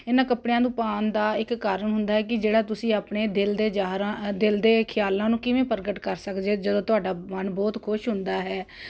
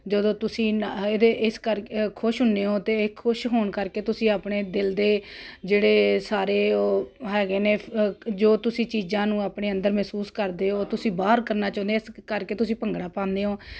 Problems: none marked